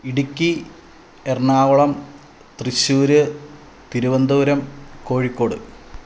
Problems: low volume